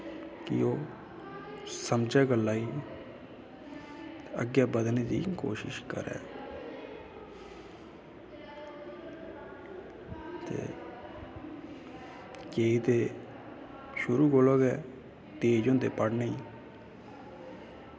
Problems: constant background noise, background conversations at intervals